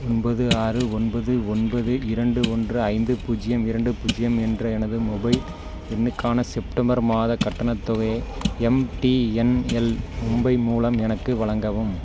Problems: background sounds at intervals